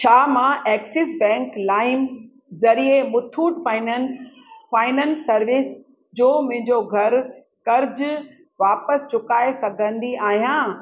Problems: background sounds at intervals, echo